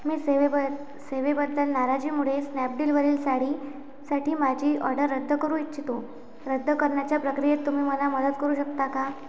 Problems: background sounds at intervals